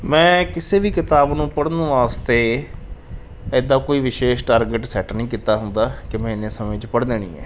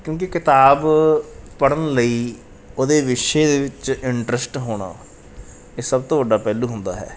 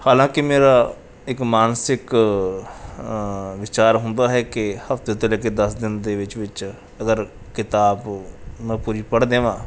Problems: background sounds at intervals